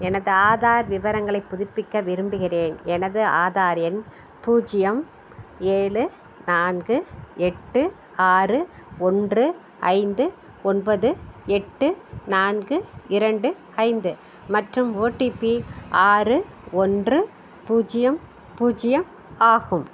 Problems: none marked